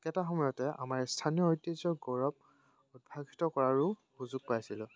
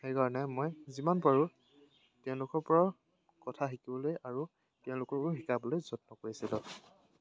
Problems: none marked